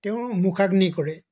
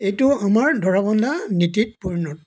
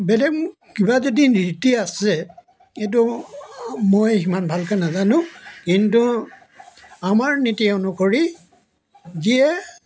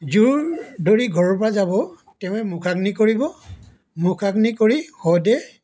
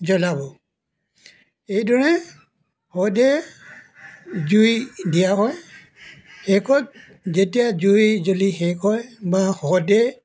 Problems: background sounds at intervals